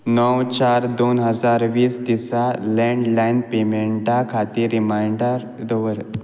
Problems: none marked